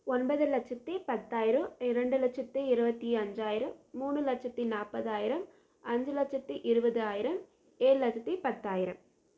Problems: low volume